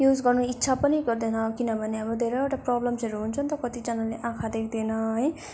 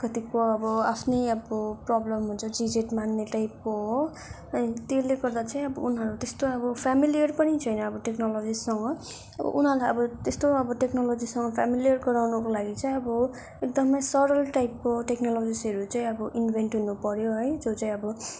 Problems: none marked